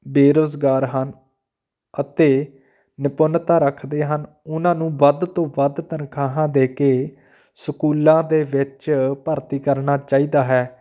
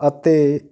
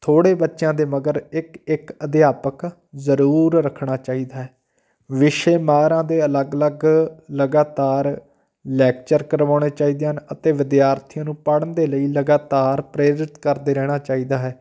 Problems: none marked